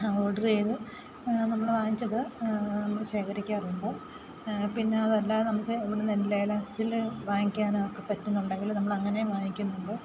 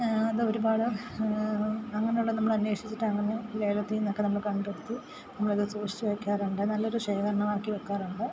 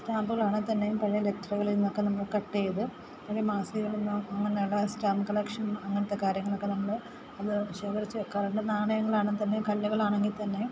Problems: constant background noise